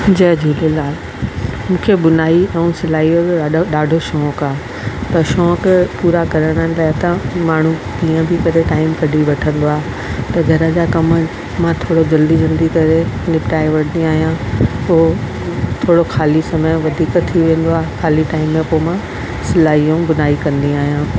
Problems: constant background noise